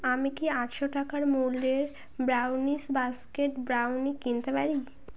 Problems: constant background noise